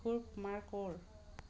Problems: constant background noise